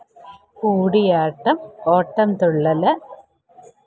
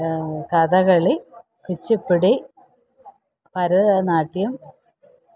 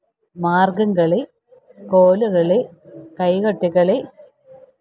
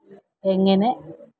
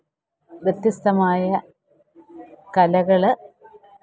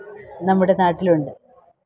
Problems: background sounds at intervals, low volume